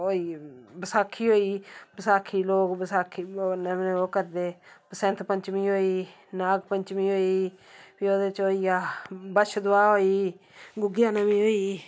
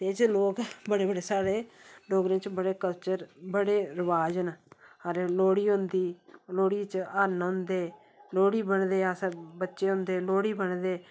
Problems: background sounds at intervals